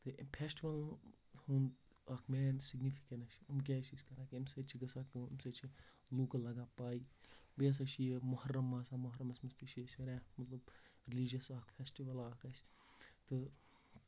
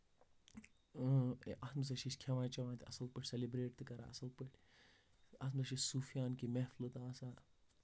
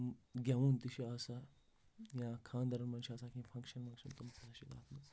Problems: background sounds at intervals, low volume